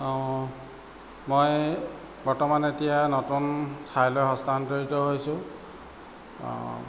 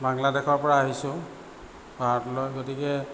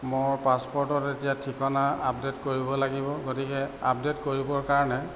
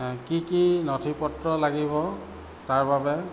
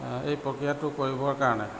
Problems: none marked